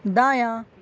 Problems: none marked